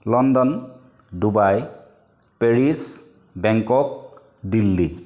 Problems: none marked